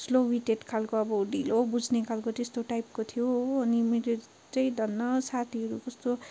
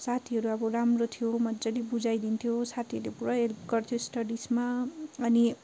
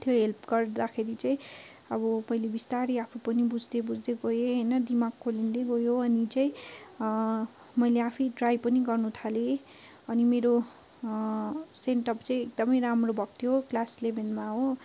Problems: constant background noise, continuous background conversations